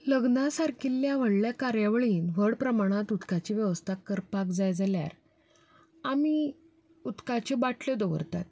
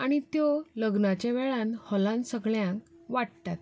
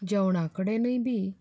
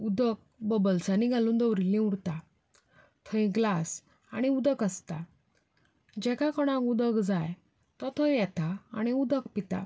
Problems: none marked